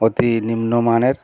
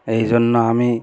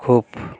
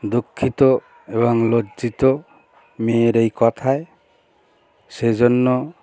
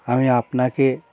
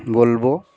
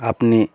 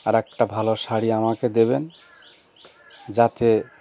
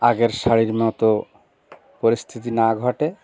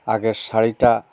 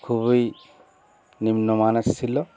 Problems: constant background noise, continuous background conversations